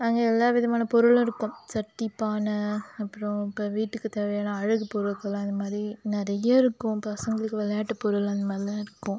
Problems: none marked